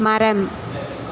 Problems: constant background noise, background conversations at intervals